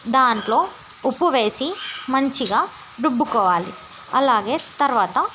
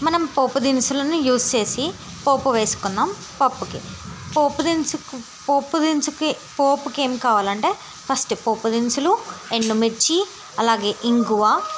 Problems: constant background noise